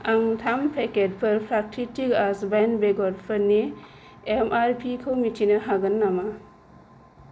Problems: none marked